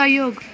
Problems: constant background noise